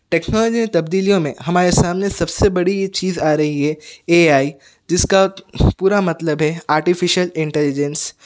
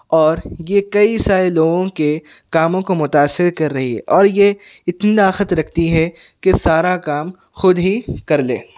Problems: background sounds at intervals